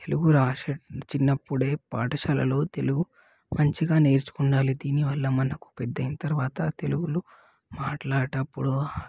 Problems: background sounds at intervals